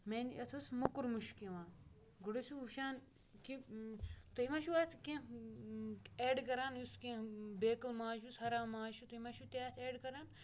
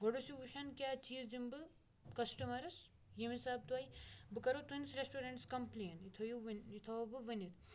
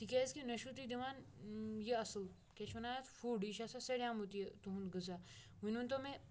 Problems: background sounds at intervals